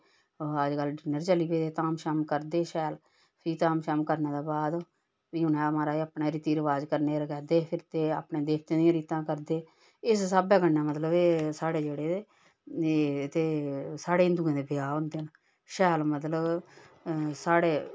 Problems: none marked